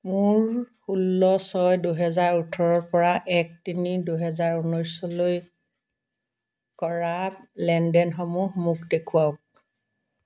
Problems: background sounds at intervals